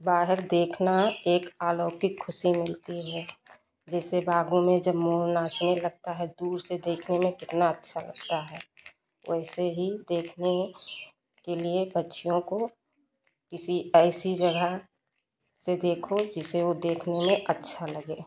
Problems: constant background noise, background conversations at intervals